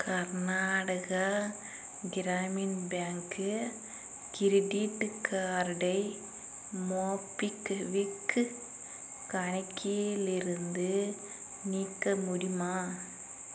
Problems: constant background noise